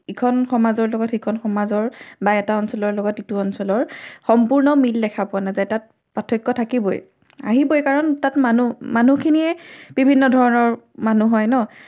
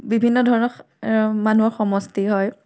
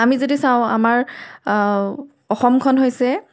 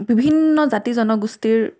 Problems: none marked